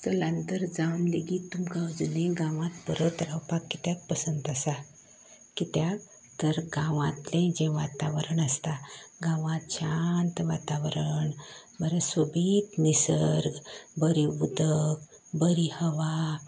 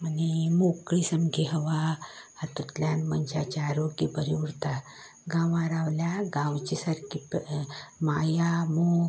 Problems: constant background noise